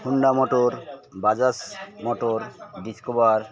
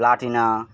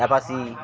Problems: constant background noise, background conversations at intervals